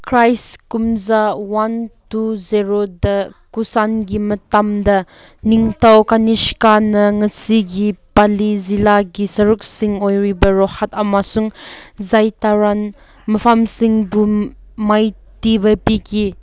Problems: none marked